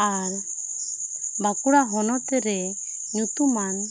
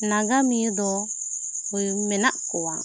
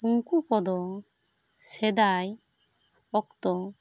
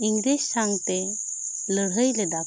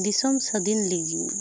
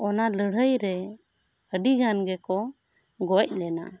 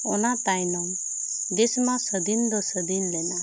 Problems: constant background noise